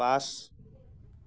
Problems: none marked